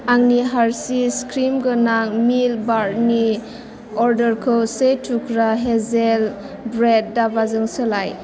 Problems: constant background noise